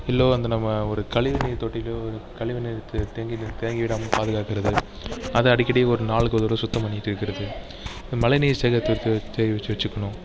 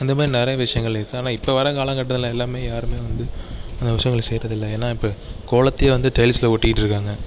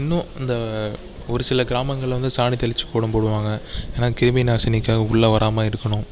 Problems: background conversations at intervals